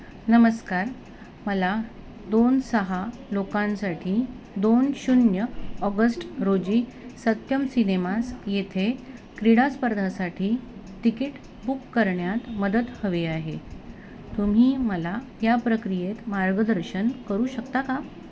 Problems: constant background noise, background conversations at intervals